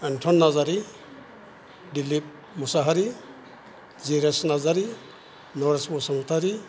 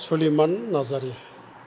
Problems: none marked